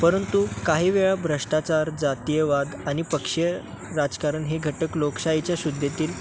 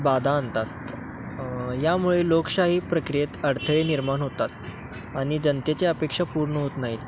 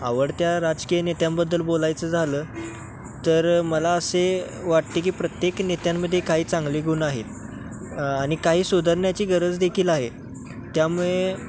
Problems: constant background noise, background conversations at intervals